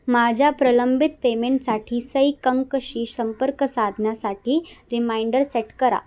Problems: constant background noise